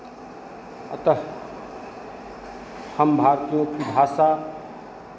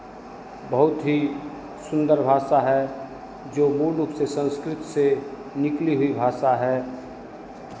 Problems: none marked